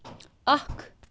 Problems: constant background noise